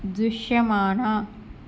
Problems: constant background noise